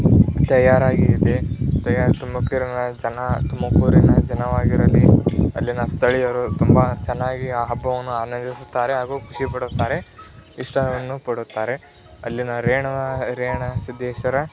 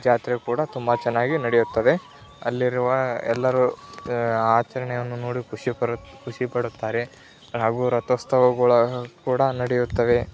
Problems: constant background noise, continuous background conversations